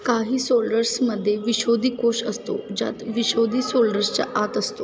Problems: constant background noise, continuous background conversations